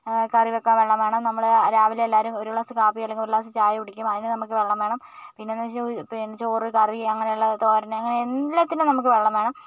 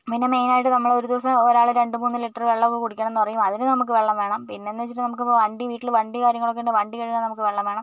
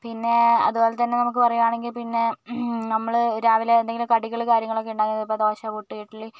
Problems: none marked